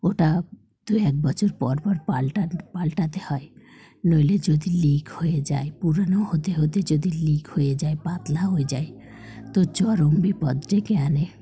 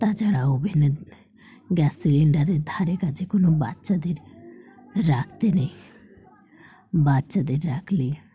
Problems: none marked